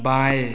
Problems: none marked